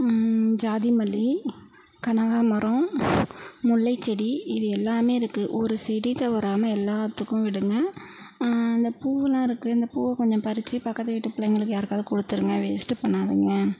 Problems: none marked